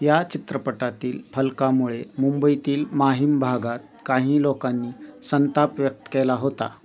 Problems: constant background noise, continuous background conversations